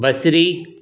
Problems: none marked